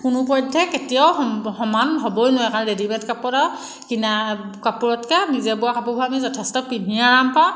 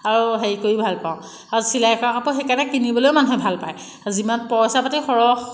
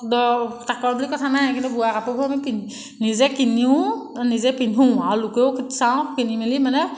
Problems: background sounds at intervals